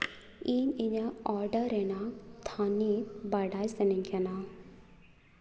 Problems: background sounds at intervals, echo